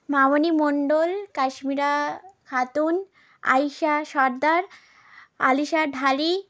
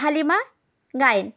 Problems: constant background noise